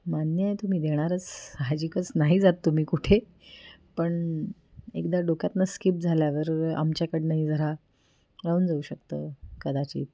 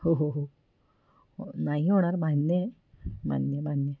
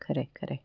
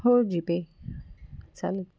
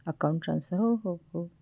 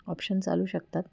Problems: none marked